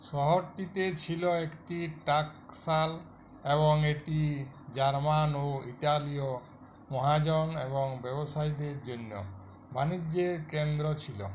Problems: none marked